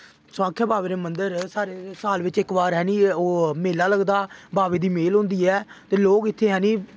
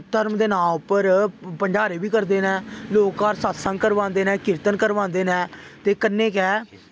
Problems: none marked